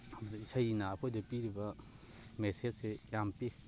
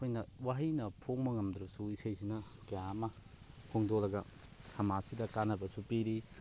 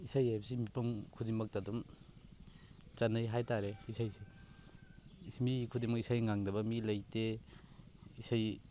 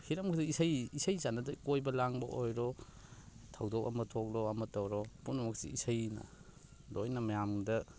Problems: background sounds at intervals, continuous background conversations